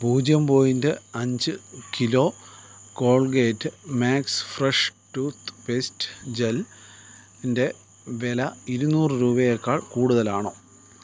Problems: none marked